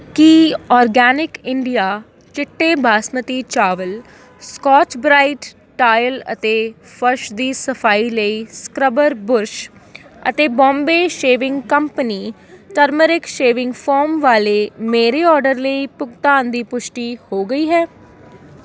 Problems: constant background noise